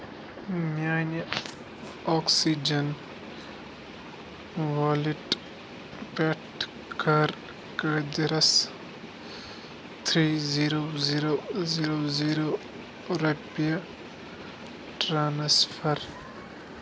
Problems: constant background noise